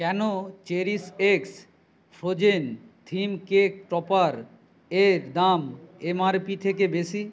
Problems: none marked